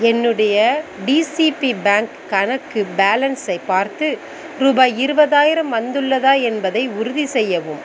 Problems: background sounds at intervals